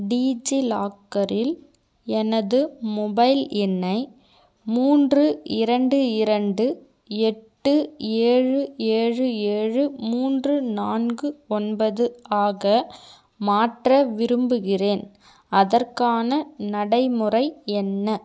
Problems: none marked